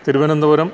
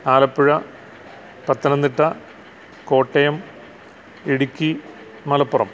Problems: background sounds at intervals